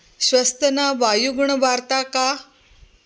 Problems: none marked